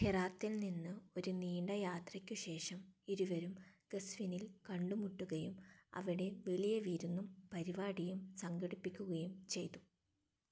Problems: low volume